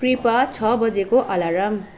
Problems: none marked